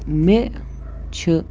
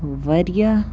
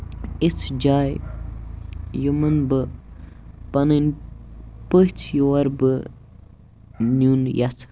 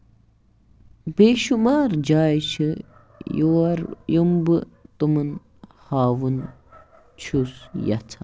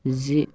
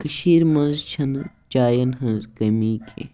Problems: background sounds at intervals